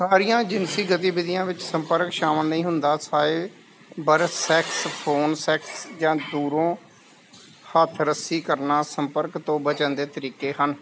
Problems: constant background noise